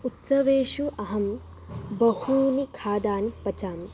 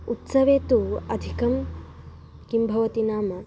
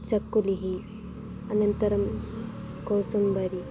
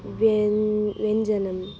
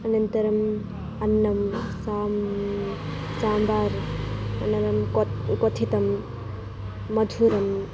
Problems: background sounds at intervals